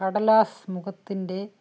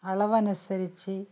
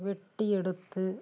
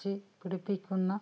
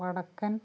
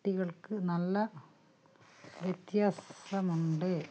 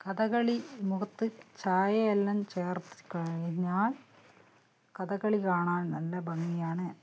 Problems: low volume